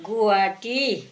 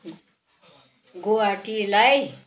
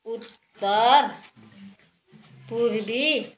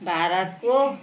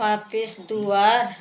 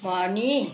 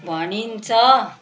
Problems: background sounds at intervals, background conversations at intervals